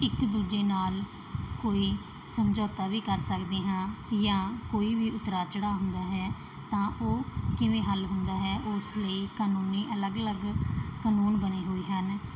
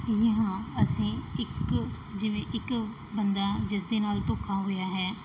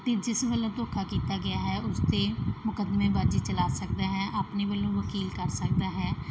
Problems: none marked